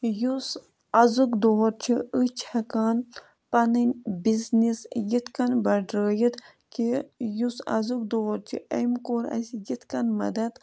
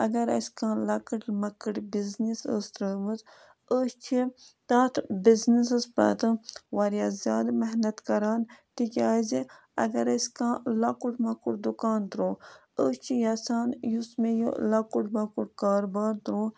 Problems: background sounds at intervals